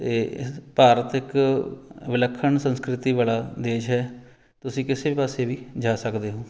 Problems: background sounds at intervals